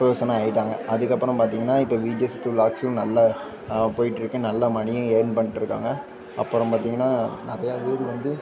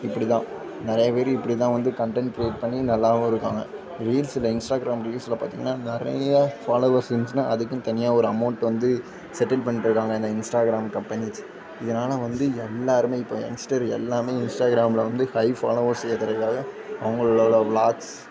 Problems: constant background noise, continuous background conversations